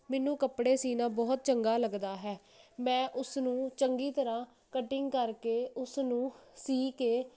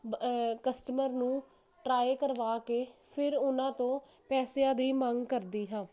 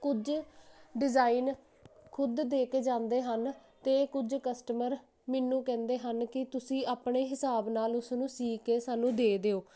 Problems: none marked